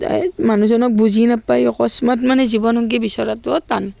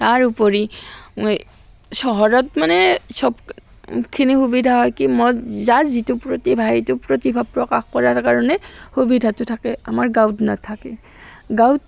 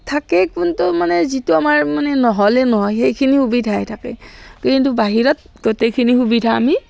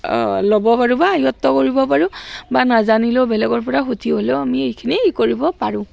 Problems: background sounds at intervals, background conversations at intervals